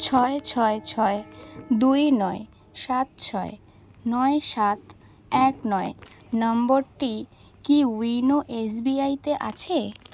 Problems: constant background noise